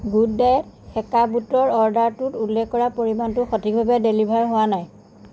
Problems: constant background noise